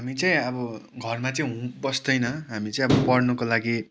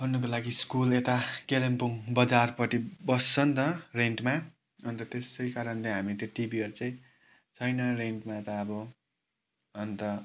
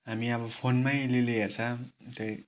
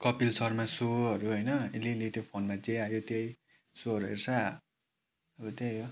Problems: background sounds at intervals